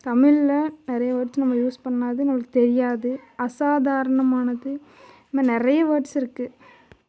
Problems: none marked